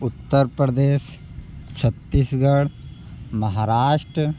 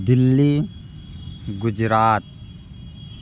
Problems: background sounds at intervals